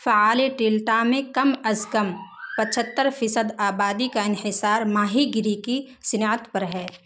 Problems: constant background noise